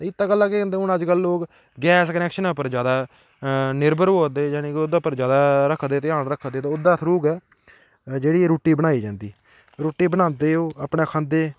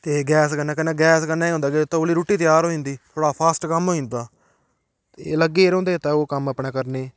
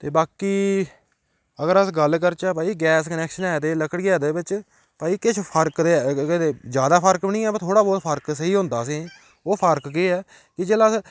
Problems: none marked